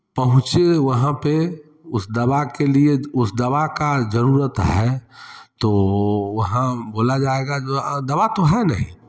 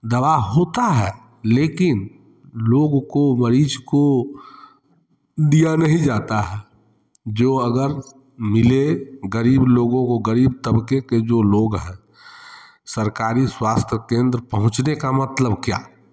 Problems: constant background noise